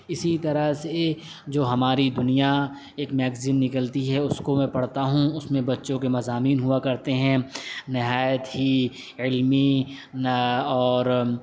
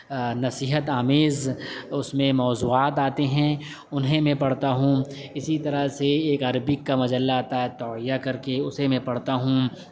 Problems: background sounds at intervals